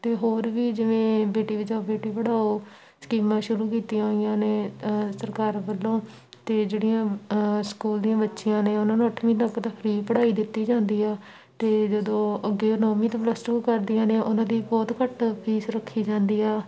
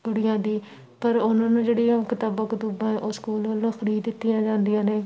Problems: none marked